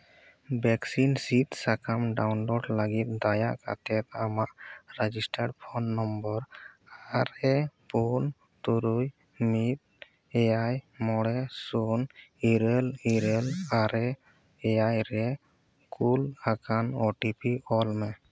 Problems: background sounds at intervals